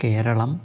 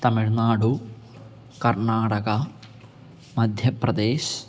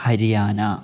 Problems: background sounds at intervals